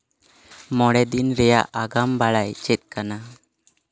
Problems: none marked